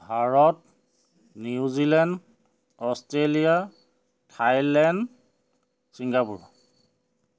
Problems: background sounds at intervals